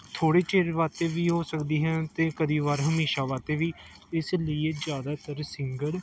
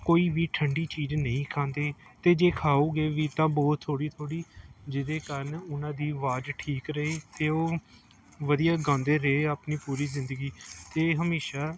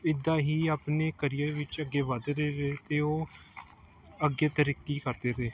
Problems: none marked